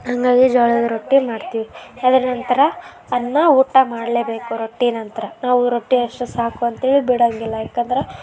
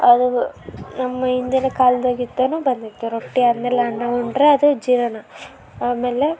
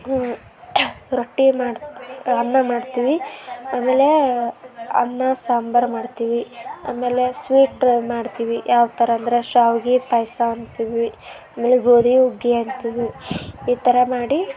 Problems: background sounds at intervals